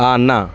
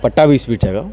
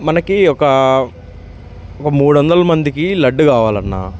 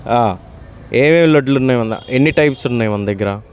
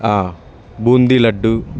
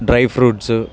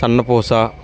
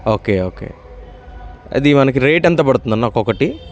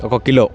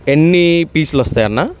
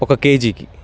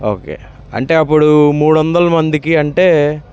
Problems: constant background noise